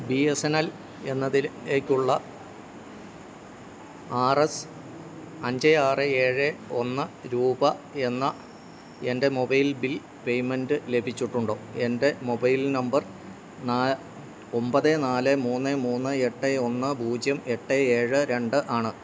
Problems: none marked